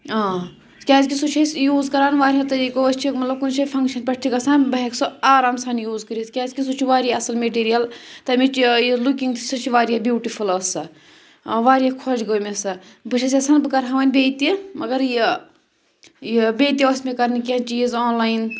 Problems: background sounds at intervals